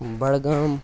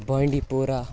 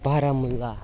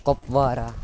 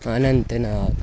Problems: constant background noise